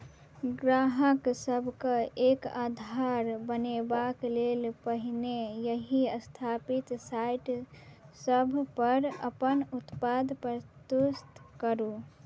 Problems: none marked